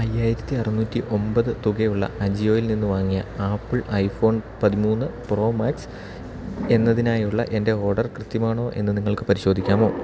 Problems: constant background noise